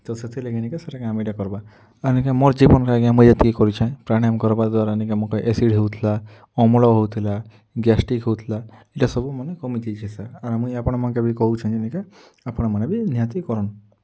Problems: low volume